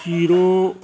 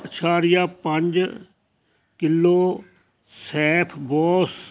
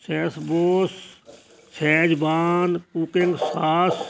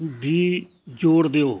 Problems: constant background noise